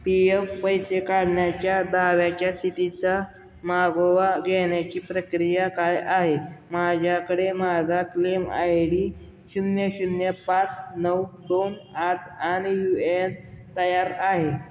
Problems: background sounds at intervals